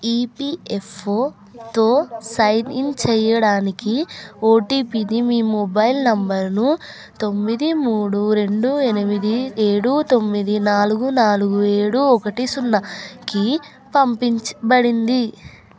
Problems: none marked